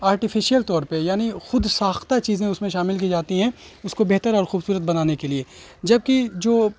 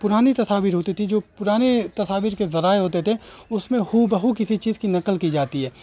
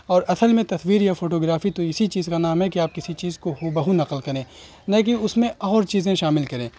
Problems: constant background noise